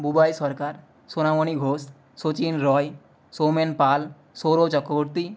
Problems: constant background noise